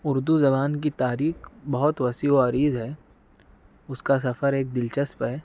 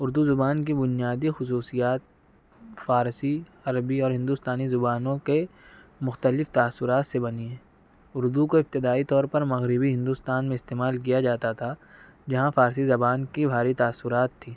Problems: none marked